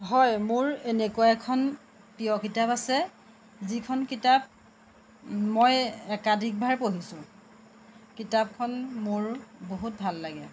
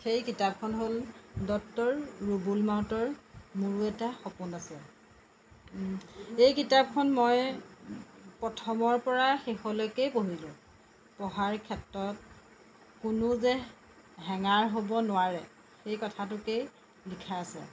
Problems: constant background noise